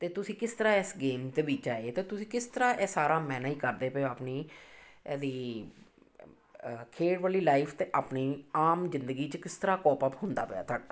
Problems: none marked